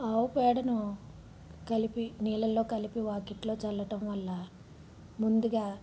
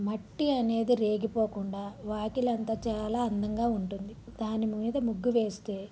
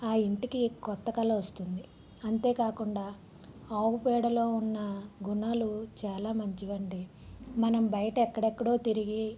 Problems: low volume